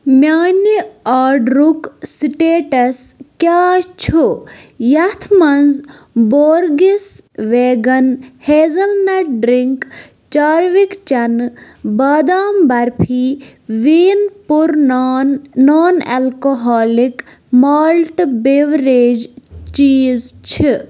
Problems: background sounds at intervals